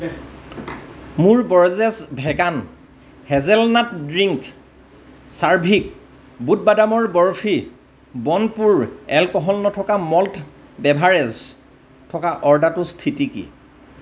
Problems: none marked